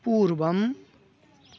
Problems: constant background noise